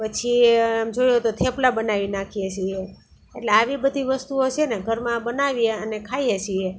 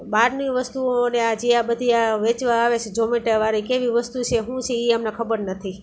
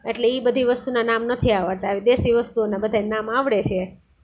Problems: constant background noise